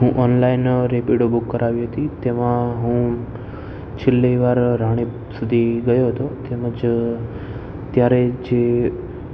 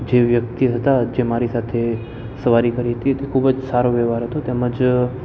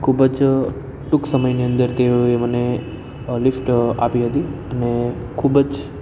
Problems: constant background noise